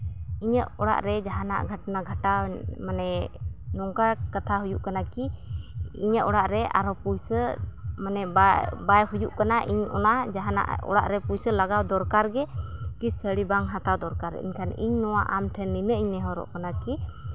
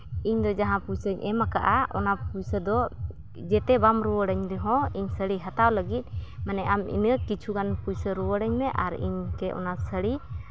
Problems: constant background noise